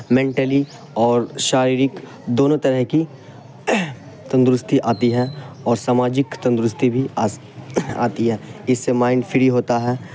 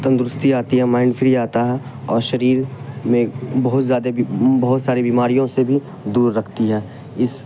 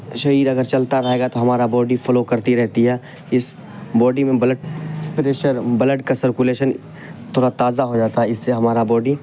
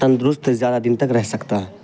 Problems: constant background noise